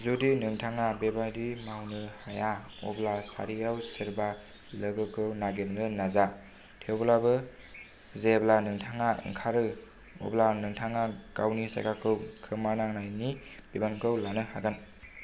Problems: low volume